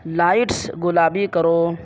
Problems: background sounds at intervals